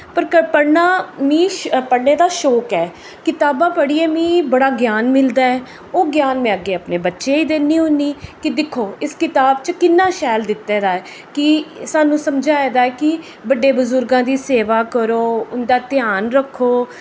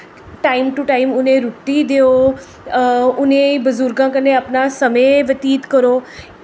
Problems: echo